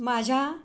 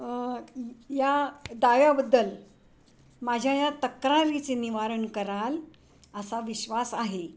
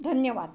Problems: none marked